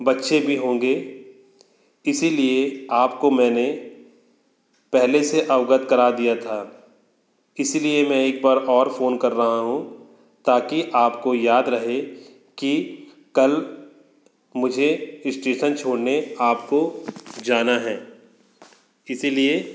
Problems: constant background noise